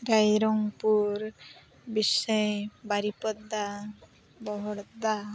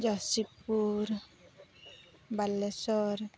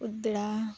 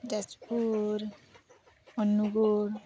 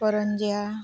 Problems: constant background noise, background conversations at intervals